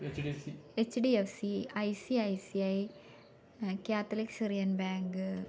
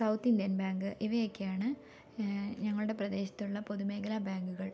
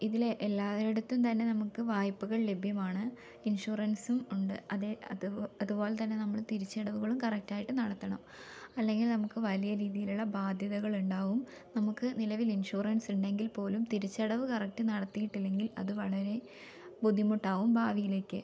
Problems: low volume